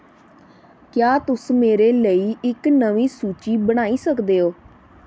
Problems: background sounds at intervals